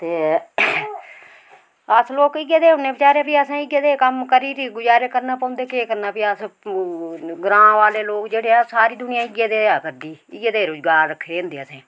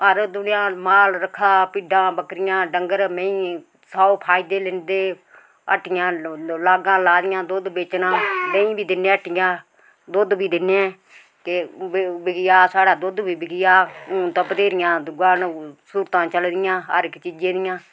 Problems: none marked